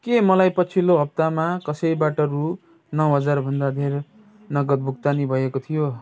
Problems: none marked